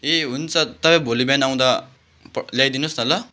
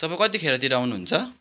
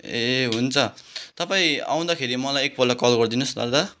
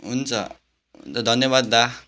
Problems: background sounds at intervals